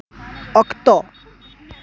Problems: continuous background conversations